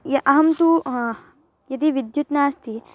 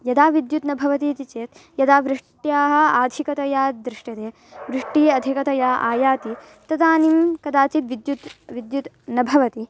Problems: background sounds at intervals, background conversations at intervals